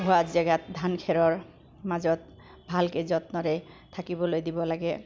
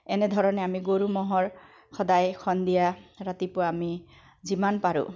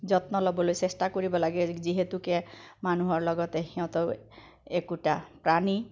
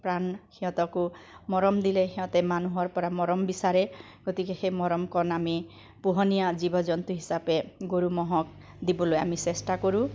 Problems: background sounds at intervals, echo